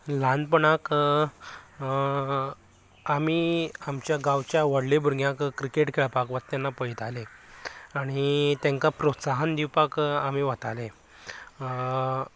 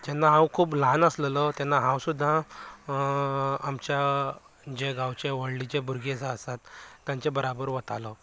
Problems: background conversations at intervals